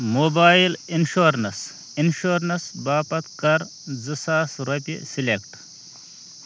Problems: none marked